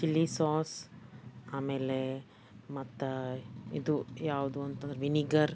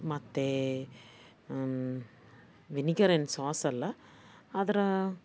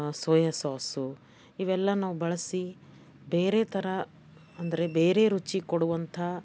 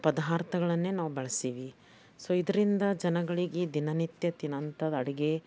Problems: background sounds at intervals